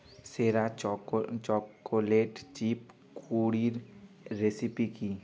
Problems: continuous background conversations